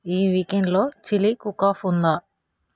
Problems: background sounds at intervals